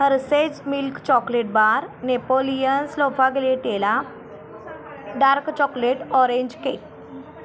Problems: none marked